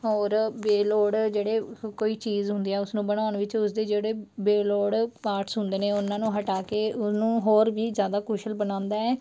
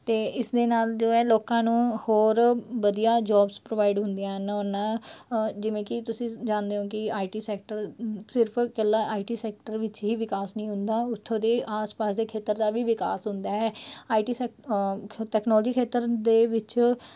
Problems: background sounds at intervals